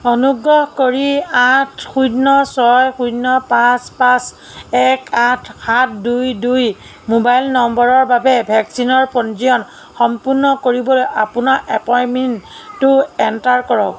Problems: background sounds at intervals